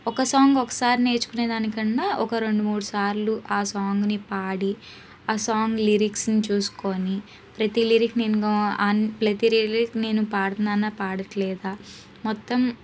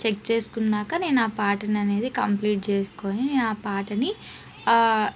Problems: background sounds at intervals